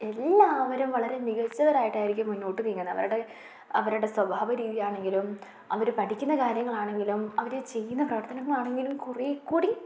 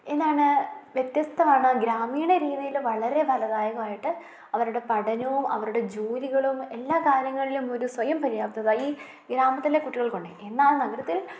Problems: none marked